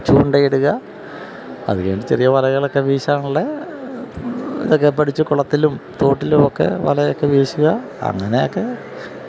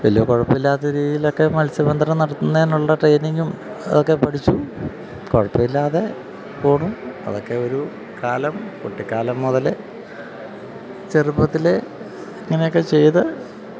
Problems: constant background noise, low volume